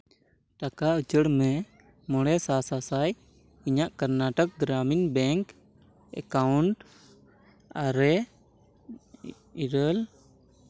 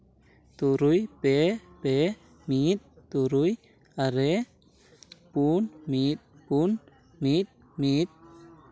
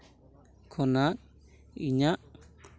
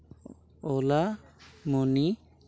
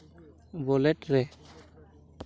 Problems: background sounds at intervals